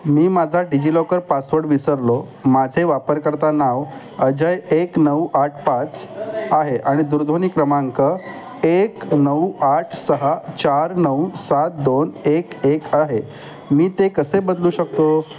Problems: constant background noise, continuous background conversations